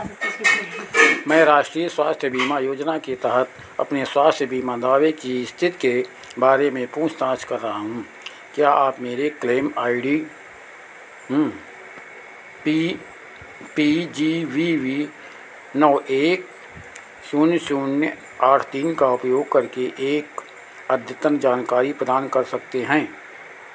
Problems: none marked